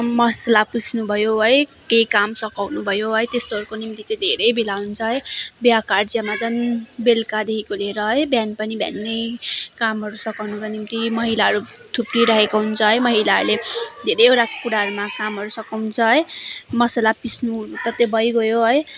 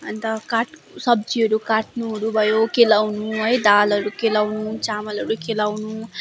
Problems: constant background noise, continuous background conversations